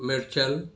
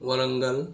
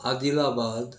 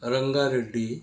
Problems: none marked